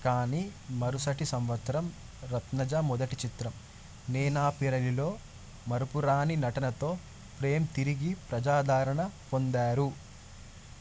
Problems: constant background noise